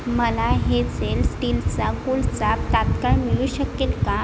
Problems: constant background noise